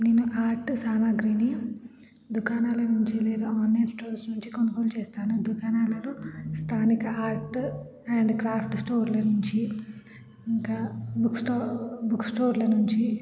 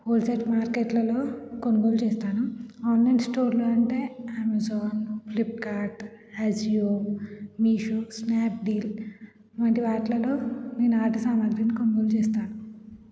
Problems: constant background noise